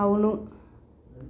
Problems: none marked